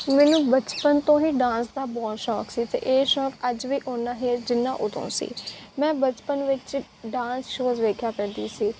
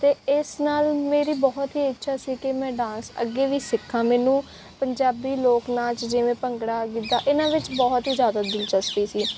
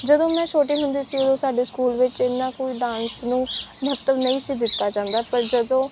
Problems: background sounds at intervals